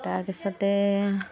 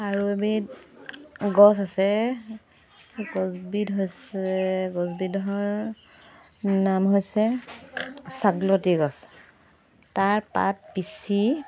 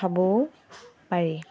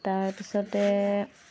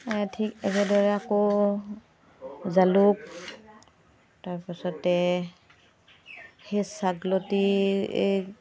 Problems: constant background noise